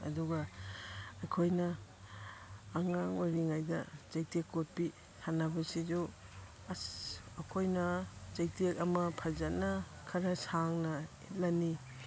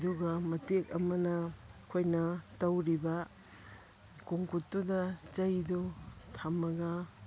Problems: background sounds at intervals